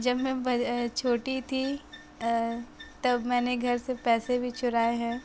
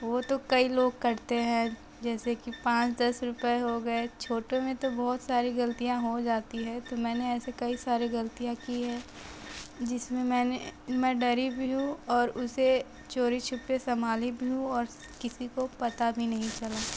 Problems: constant background noise, low volume